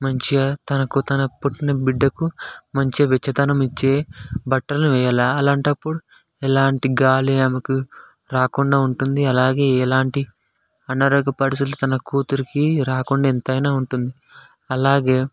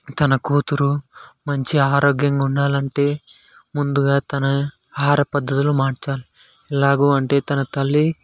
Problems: constant background noise